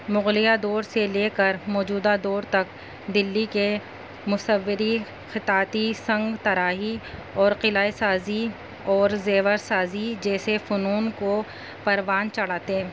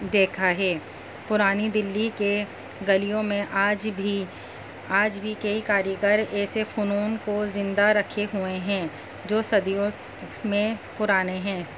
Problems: constant background noise